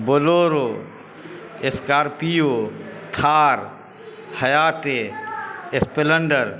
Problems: constant background noise